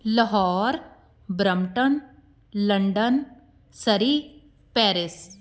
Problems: none marked